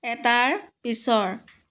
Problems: none marked